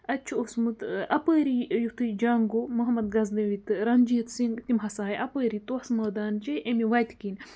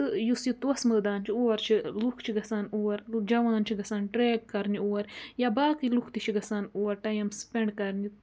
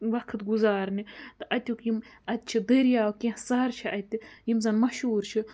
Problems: none marked